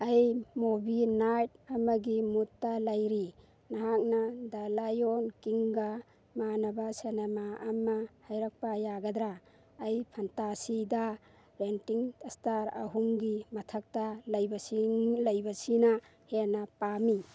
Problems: background sounds at intervals